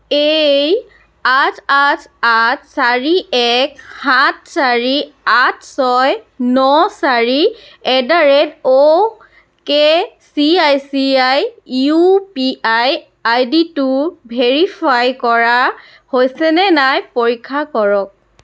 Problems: none marked